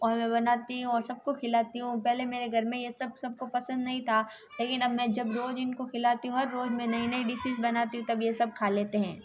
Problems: constant background noise